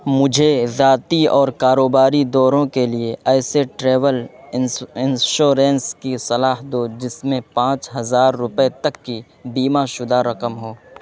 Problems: constant background noise